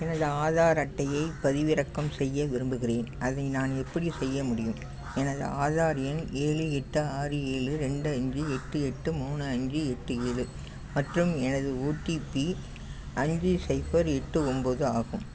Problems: none marked